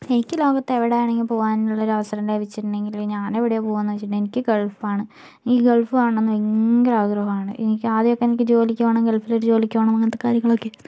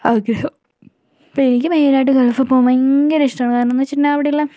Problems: background sounds at intervals, low volume